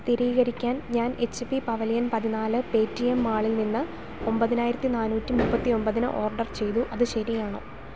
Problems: constant background noise